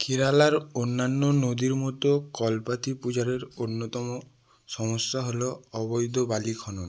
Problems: none marked